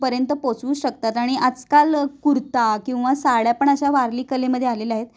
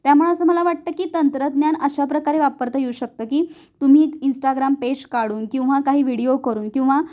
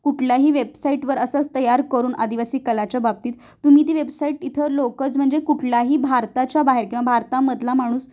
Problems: constant background noise